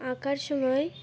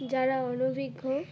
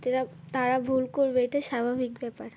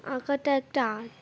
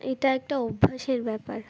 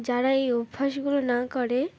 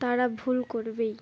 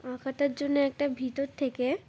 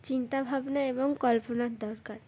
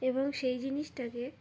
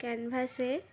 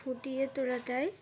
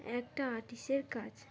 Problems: none marked